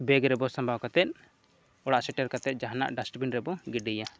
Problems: none marked